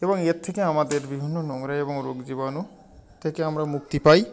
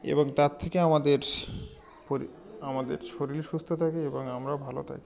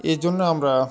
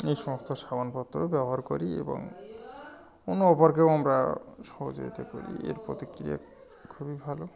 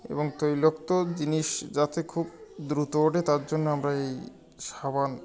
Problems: constant background noise, continuous background conversations